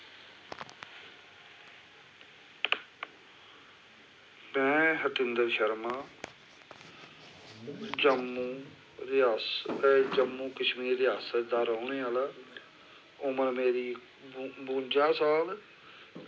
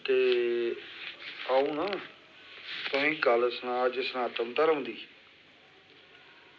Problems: constant background noise